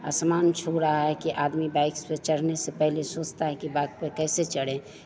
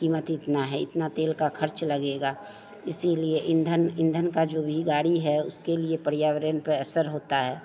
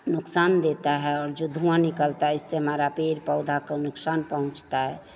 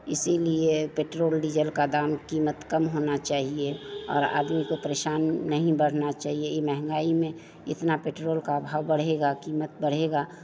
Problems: constant background noise, background conversations at intervals